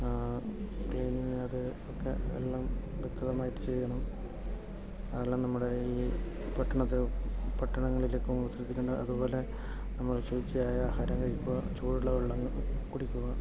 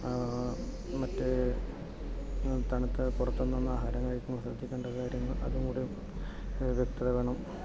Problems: background sounds at intervals, low volume